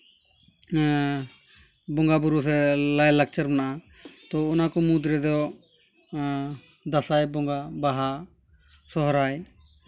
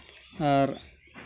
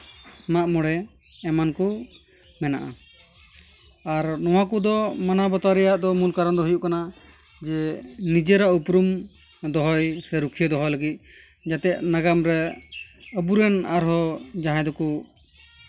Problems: background sounds at intervals